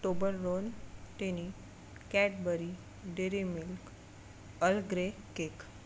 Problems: background sounds at intervals